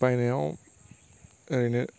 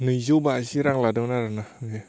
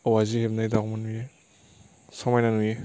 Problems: none marked